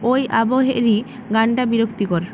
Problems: constant background noise